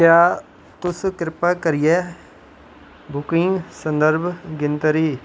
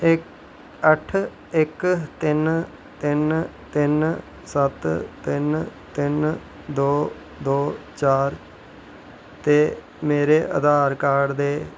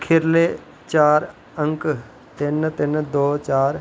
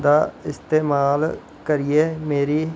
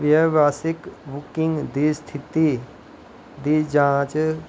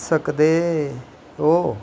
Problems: none marked